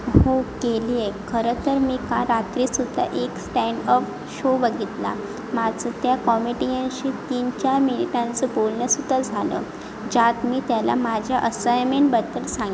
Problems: constant background noise